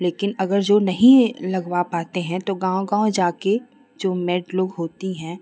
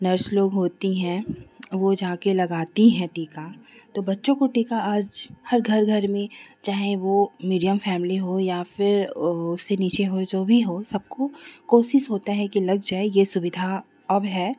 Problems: constant background noise